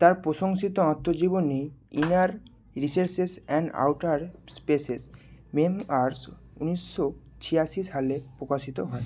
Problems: constant background noise